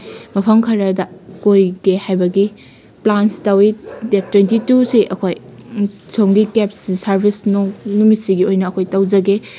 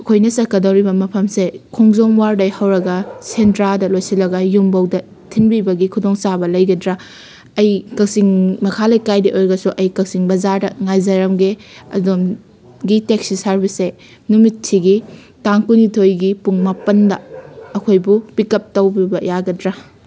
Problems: constant background noise